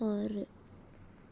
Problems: none marked